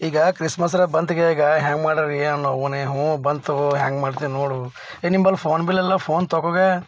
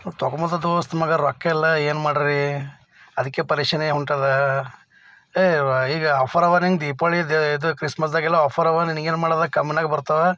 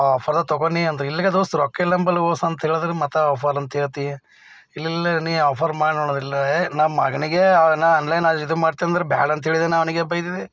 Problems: none marked